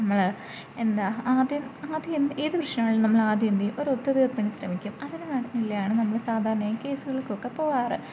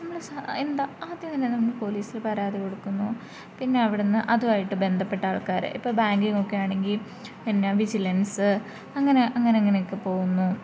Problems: low volume